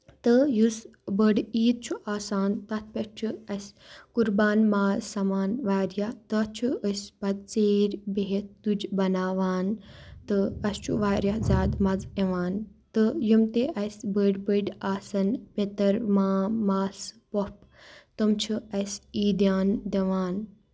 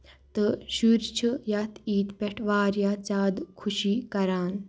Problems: none marked